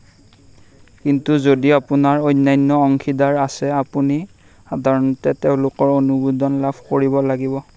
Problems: none marked